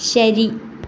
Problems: background sounds at intervals